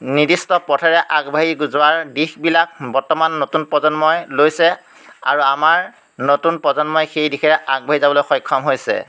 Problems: none marked